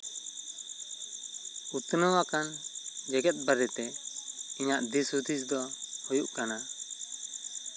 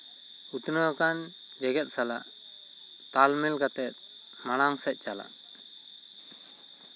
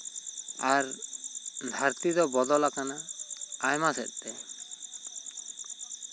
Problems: constant background noise